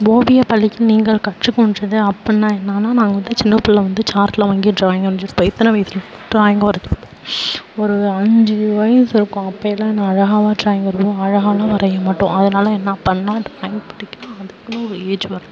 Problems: background sounds at intervals